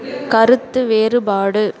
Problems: background sounds at intervals